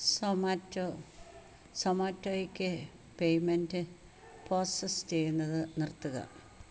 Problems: constant background noise